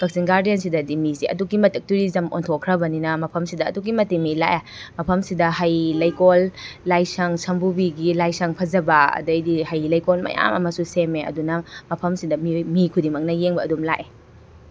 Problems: none marked